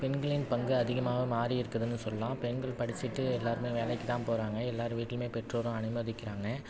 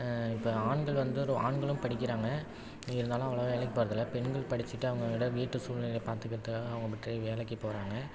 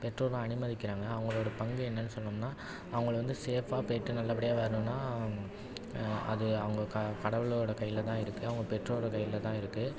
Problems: none marked